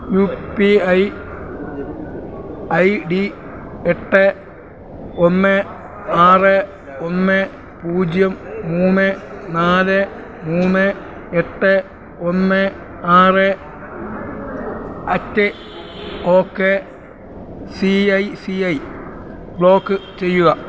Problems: constant background noise